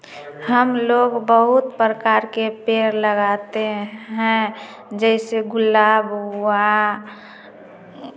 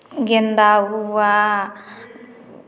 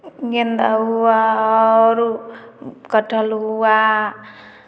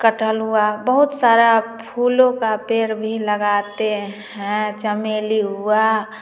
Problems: background sounds at intervals, background conversations at intervals, echo